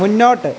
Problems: constant background noise